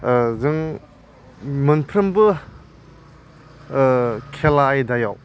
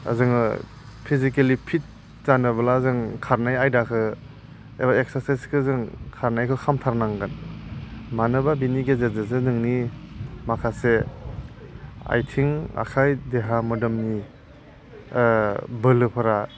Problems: none marked